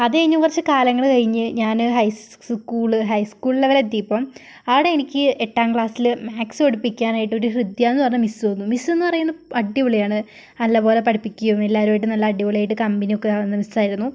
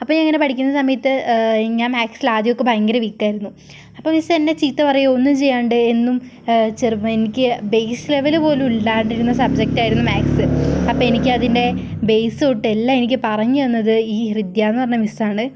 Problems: background sounds at intervals